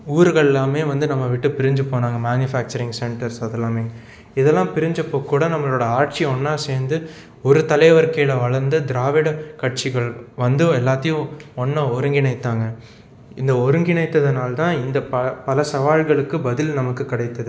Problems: background sounds at intervals